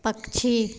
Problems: none marked